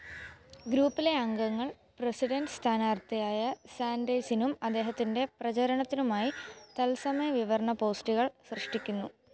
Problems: background sounds at intervals